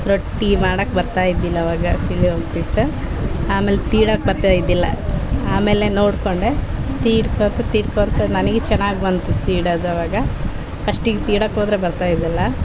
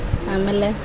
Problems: none marked